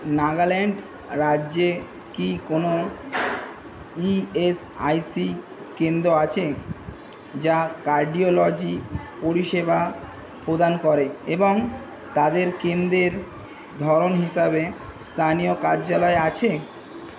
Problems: constant background noise